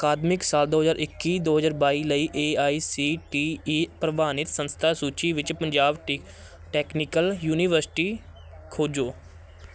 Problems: constant background noise, background conversations at intervals